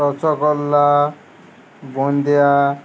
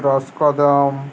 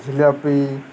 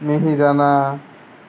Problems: constant background noise